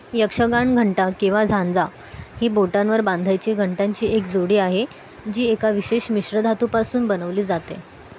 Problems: none marked